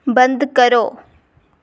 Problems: none marked